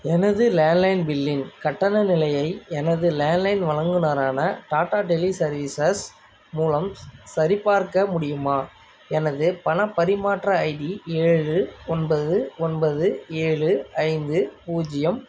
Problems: none marked